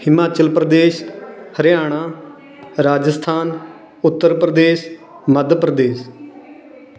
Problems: background conversations at intervals